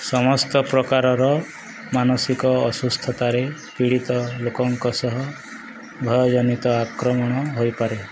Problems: constant background noise